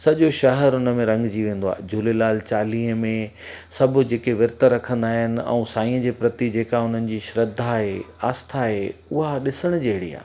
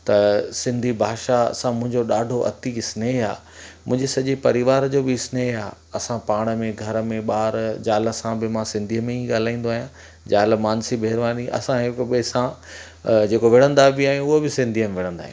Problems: constant background noise, echo